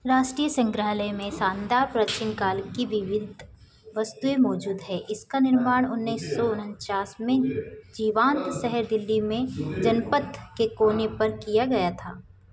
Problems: constant background noise, background conversations at intervals